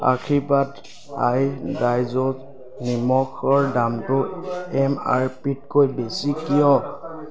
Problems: background sounds at intervals, background conversations at intervals